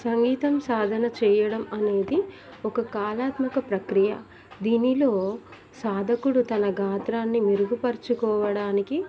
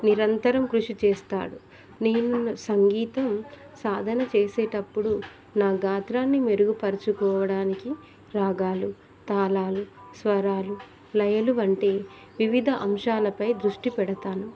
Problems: continuous background conversations